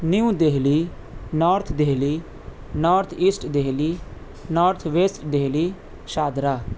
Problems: constant background noise